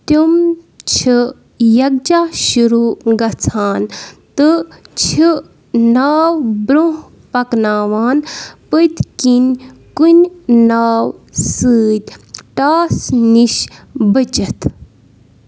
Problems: background sounds at intervals